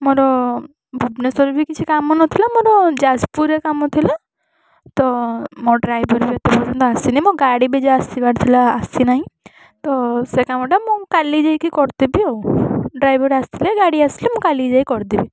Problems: constant background noise